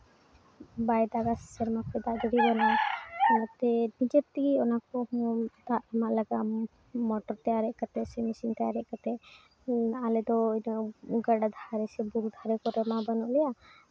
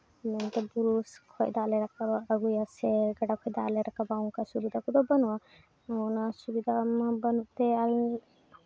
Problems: none marked